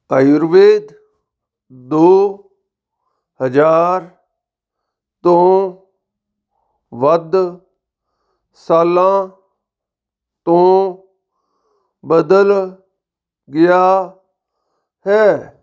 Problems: background sounds at intervals